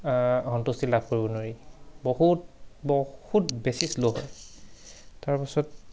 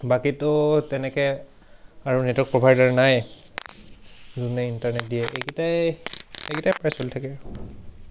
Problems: background sounds at intervals